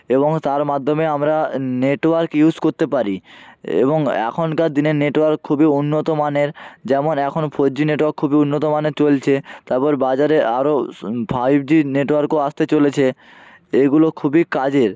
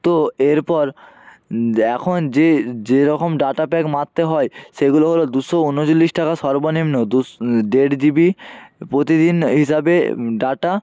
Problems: none marked